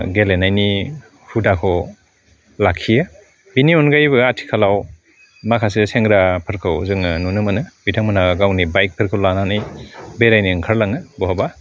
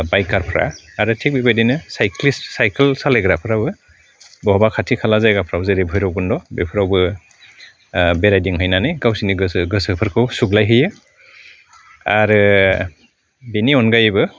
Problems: none marked